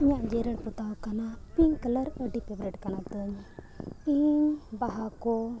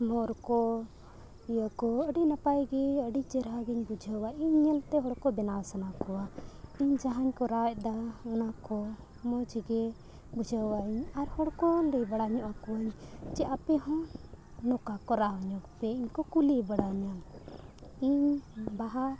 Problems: background sounds at intervals, low volume